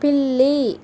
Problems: constant background noise